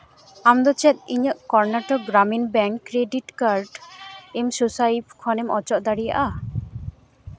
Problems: background sounds at intervals